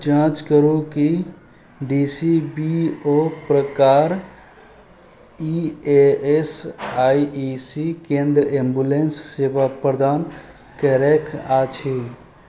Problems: none marked